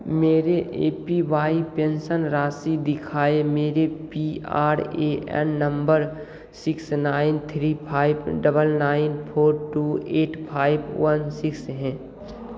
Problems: none marked